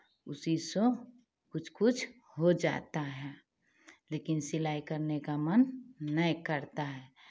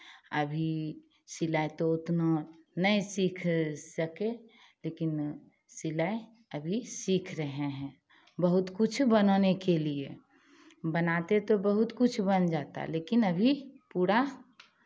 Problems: background sounds at intervals